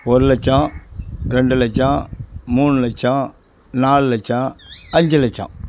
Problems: none marked